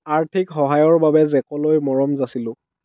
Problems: low volume